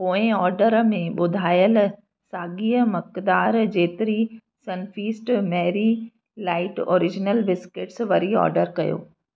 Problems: none marked